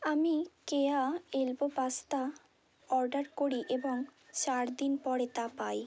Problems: constant background noise